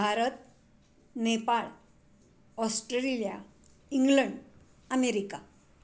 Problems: constant background noise